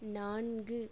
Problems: low volume